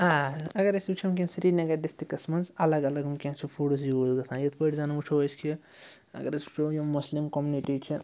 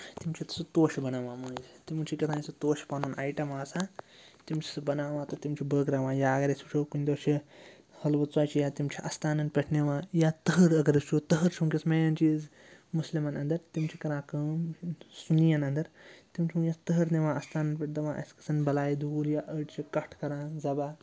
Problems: constant background noise